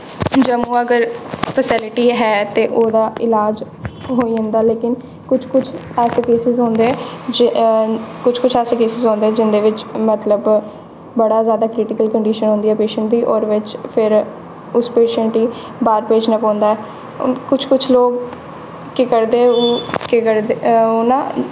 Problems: constant background noise, echo